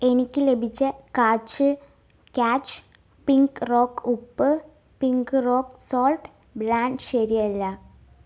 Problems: low volume